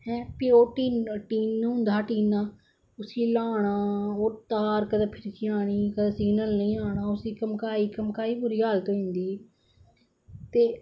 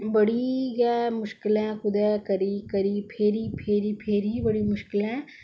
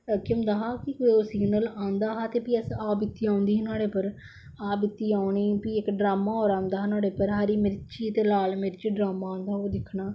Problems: none marked